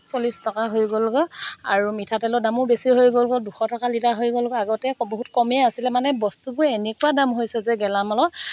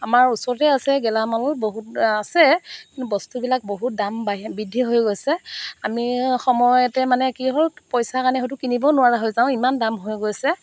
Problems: none marked